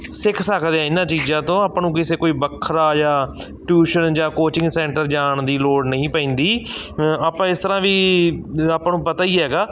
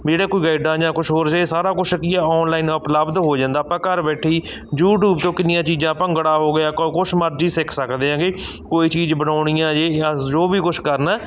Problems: none marked